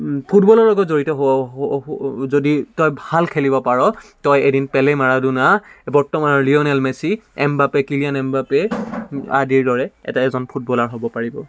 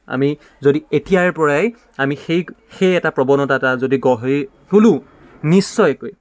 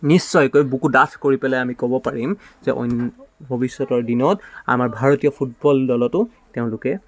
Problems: background sounds at intervals